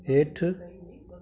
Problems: constant background noise, echo